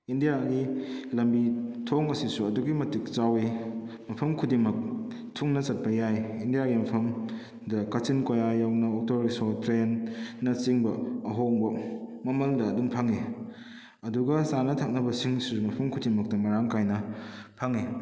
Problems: echo